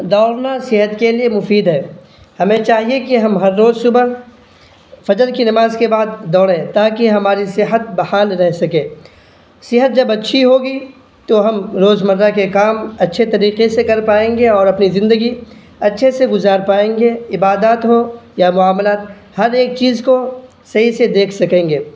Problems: none marked